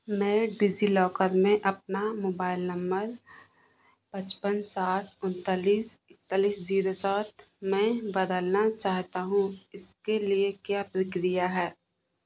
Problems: constant background noise